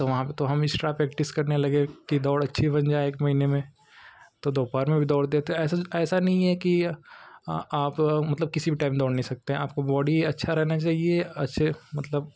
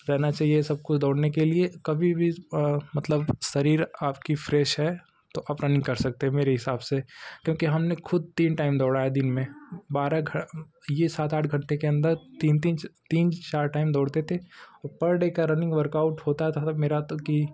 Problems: constant background noise